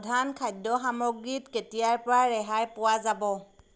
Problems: constant background noise